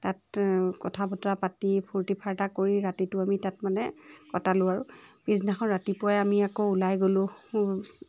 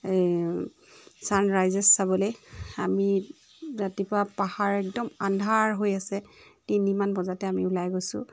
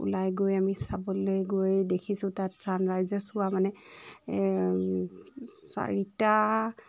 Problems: background sounds at intervals, background conversations at intervals